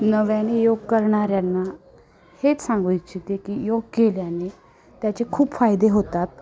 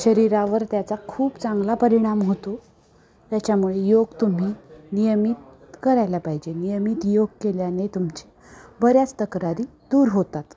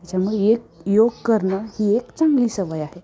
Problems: constant background noise, continuous background conversations